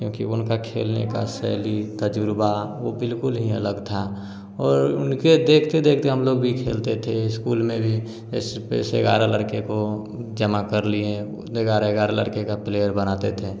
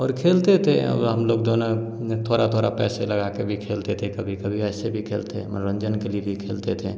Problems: none marked